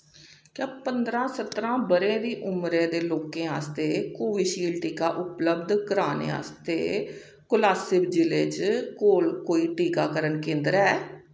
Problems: echo